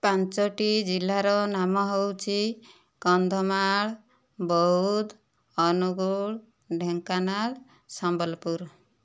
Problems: none marked